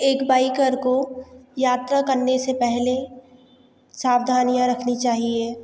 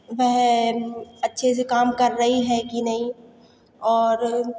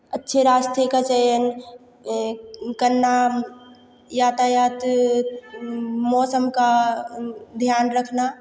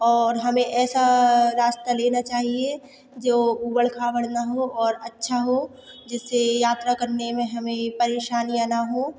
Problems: none marked